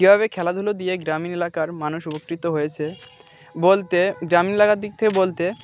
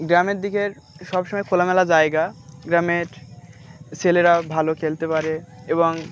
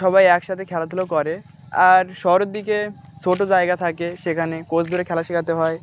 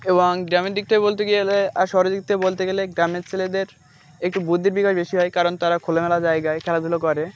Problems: constant background noise, background conversations at intervals